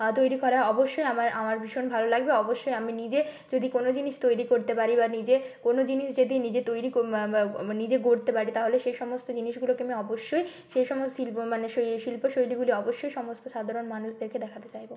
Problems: background sounds at intervals